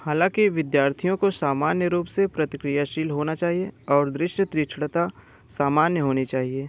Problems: constant background noise